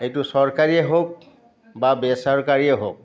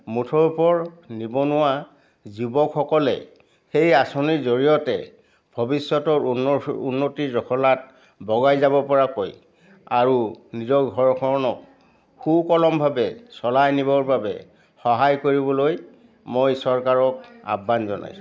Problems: background conversations at intervals